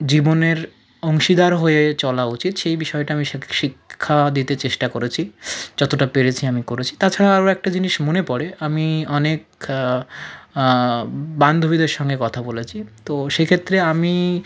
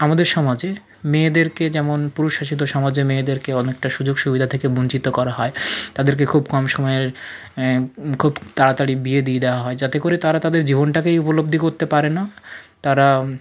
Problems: background sounds at intervals, low volume